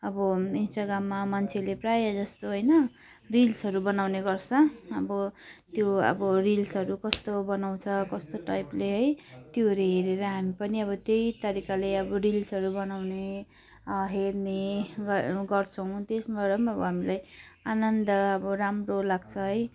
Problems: none marked